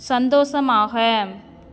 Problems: constant background noise